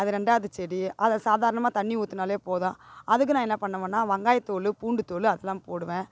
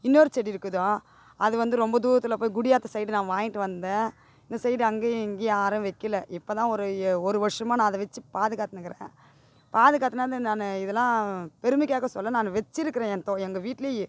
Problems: none marked